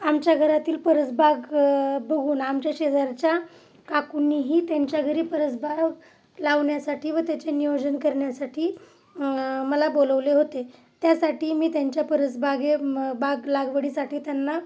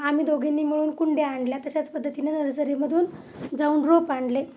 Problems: none marked